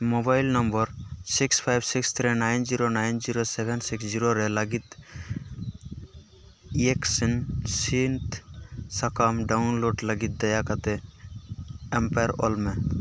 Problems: none marked